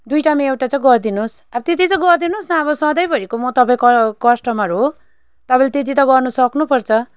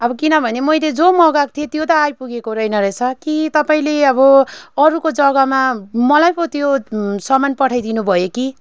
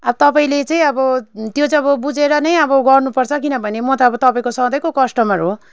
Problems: constant background noise